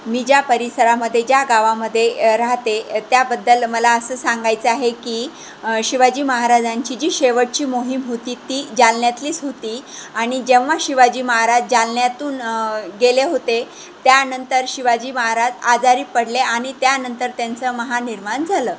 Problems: constant background noise